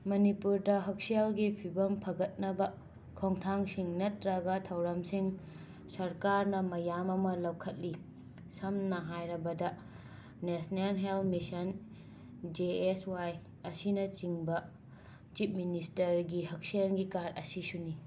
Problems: constant background noise